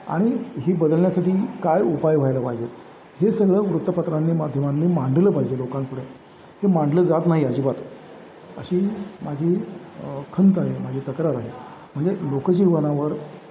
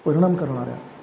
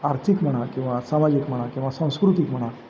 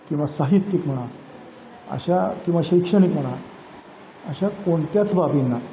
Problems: constant background noise, background conversations at intervals